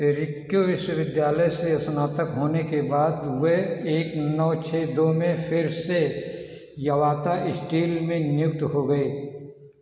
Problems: background sounds at intervals, echo